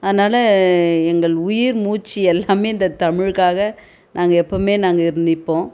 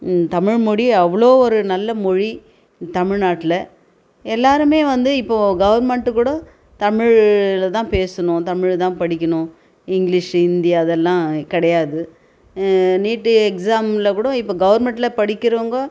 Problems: none marked